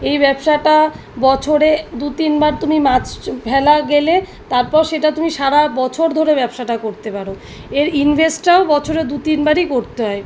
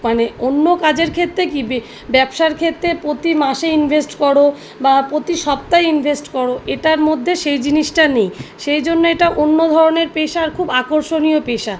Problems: none marked